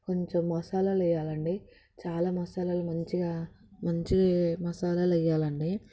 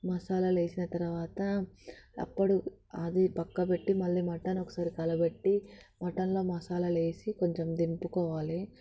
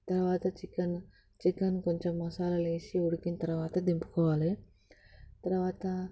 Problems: constant background noise